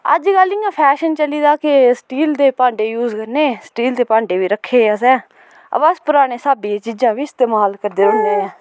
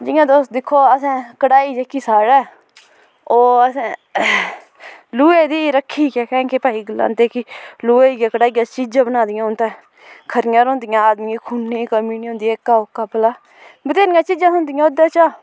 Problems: constant background noise